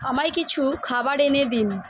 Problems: constant background noise